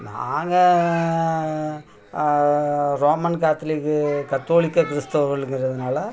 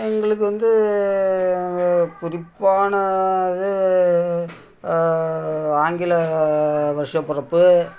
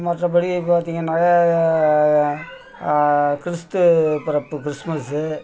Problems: continuous background conversations